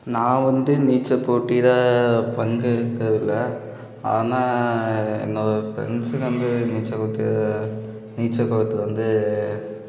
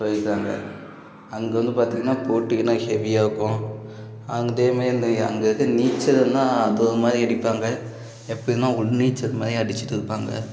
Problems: background sounds at intervals, background conversations at intervals